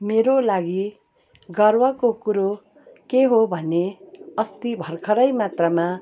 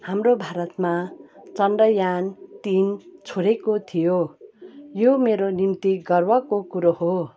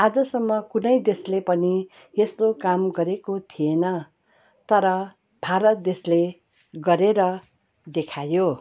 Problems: none marked